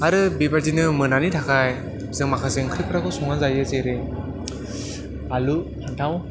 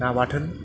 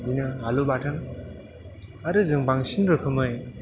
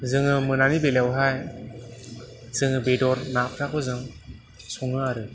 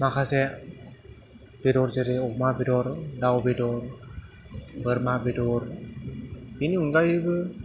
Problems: constant background noise